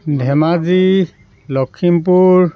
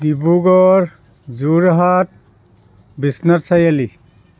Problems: none marked